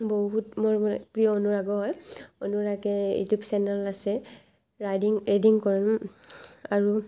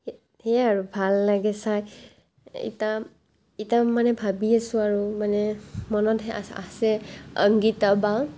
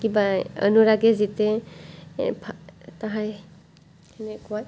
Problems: none marked